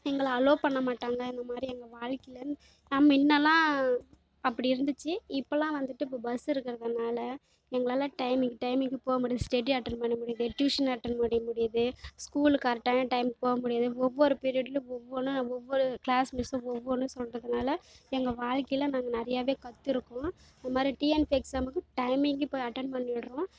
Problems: background sounds at intervals